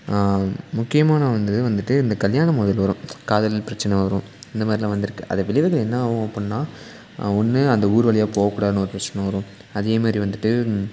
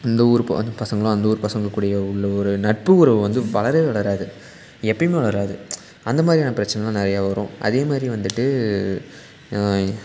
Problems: constant background noise